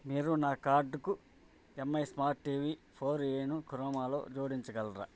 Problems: none marked